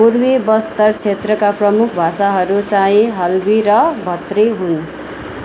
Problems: constant background noise